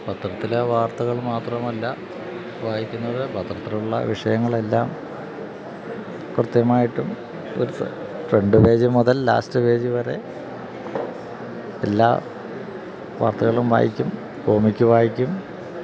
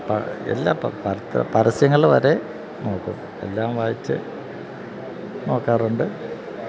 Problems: background sounds at intervals